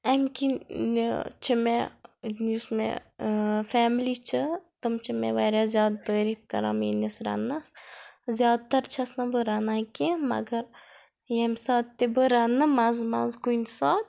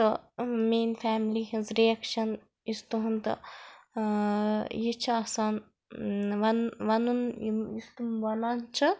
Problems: none marked